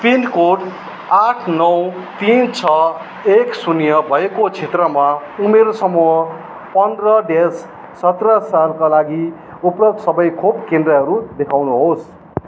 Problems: background sounds at intervals